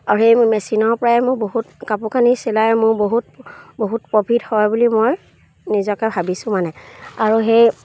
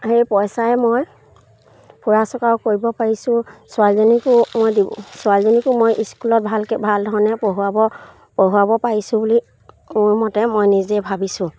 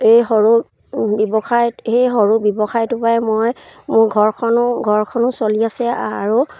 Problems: none marked